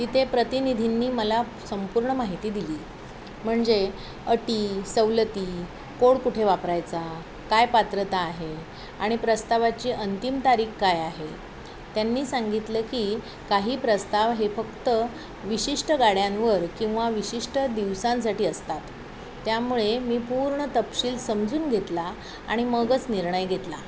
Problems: constant background noise, continuous background conversations